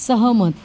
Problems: background sounds at intervals